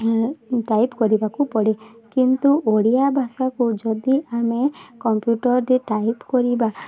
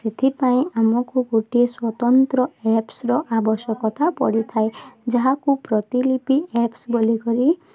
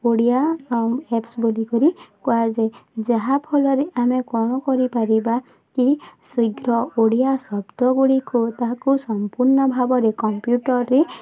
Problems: constant background noise